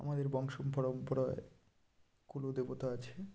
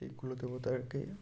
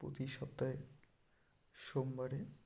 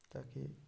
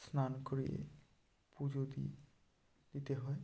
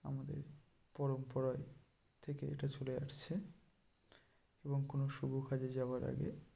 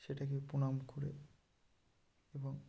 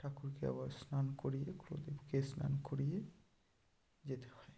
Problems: low volume